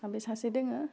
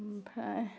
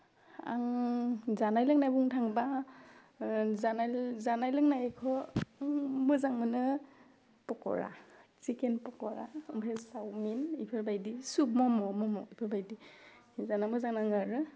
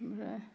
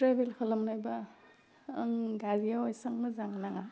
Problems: constant background noise